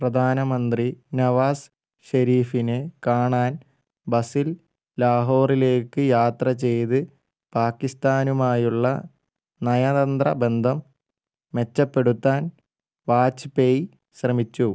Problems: low volume